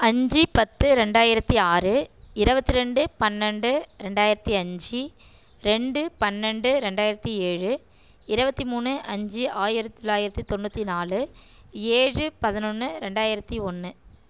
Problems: none marked